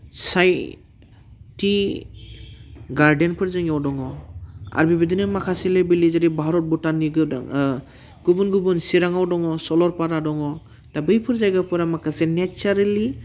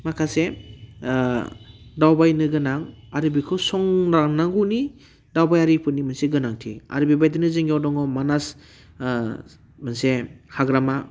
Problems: constant background noise